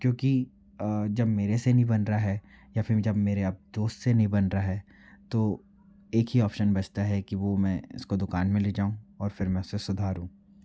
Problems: none marked